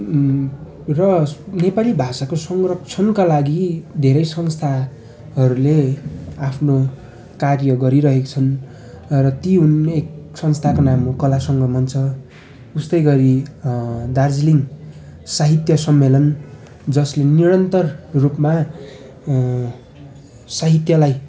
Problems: constant background noise, continuous background conversations